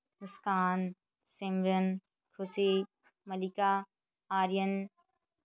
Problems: background conversations at intervals